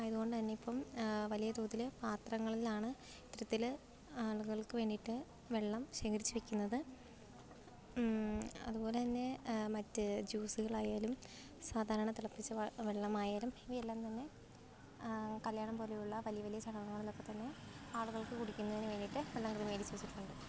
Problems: low volume